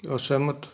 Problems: background sounds at intervals